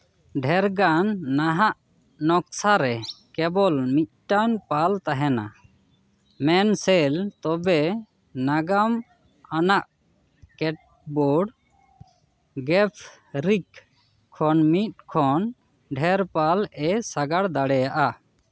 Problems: none marked